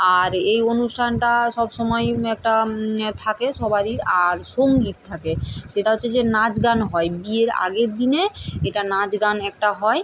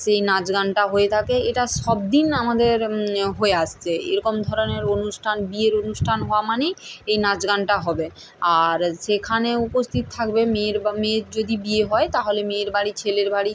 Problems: none marked